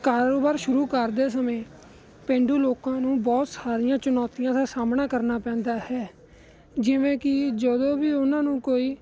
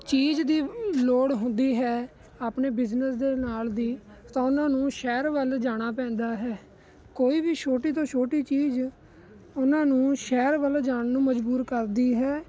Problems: constant background noise